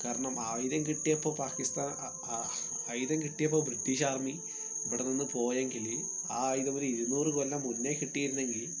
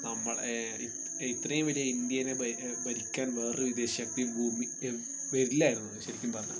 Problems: constant background noise